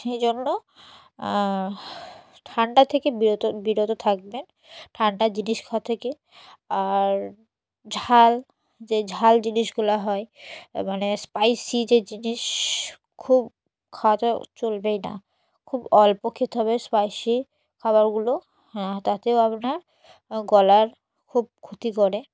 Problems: none marked